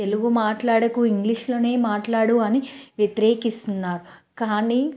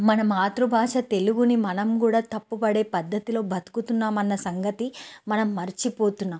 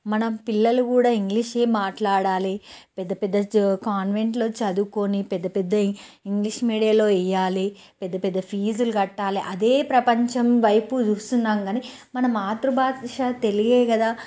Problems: none marked